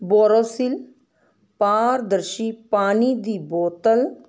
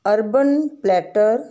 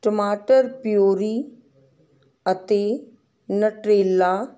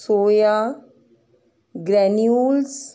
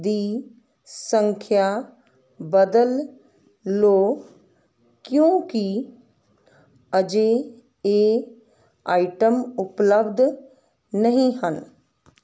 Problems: none marked